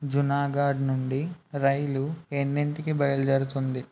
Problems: none marked